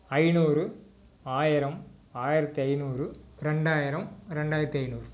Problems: none marked